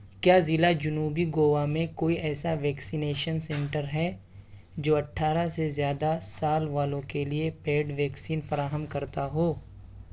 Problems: background sounds at intervals